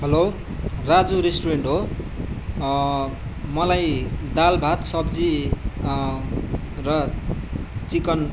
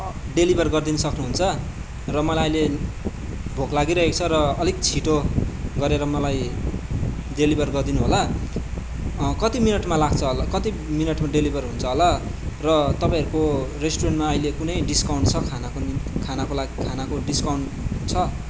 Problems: background conversations at intervals